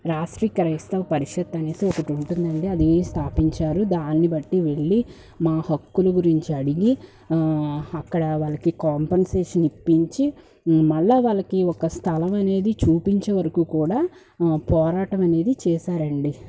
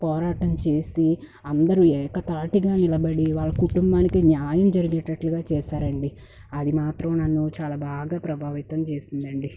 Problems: background sounds at intervals